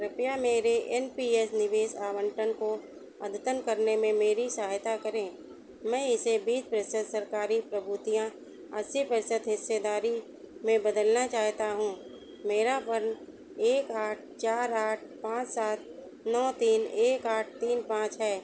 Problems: constant background noise